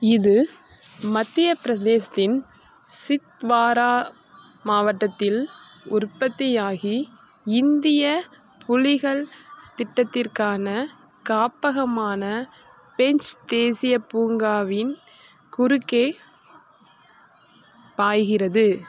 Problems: constant background noise